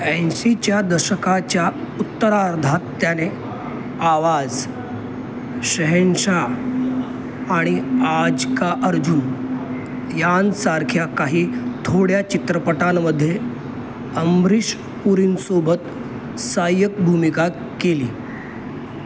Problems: constant background noise